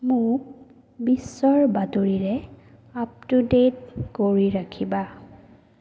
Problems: low volume